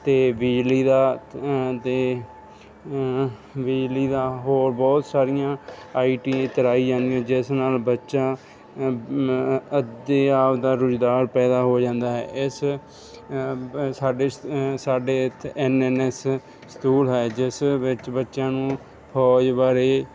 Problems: none marked